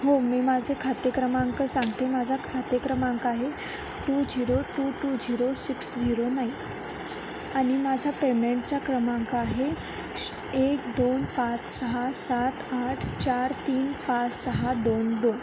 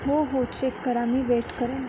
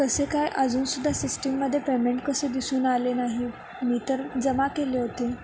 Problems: none marked